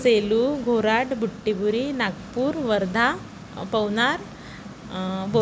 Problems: constant background noise